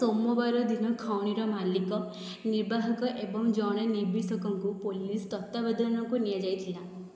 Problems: background sounds at intervals